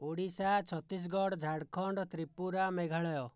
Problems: low volume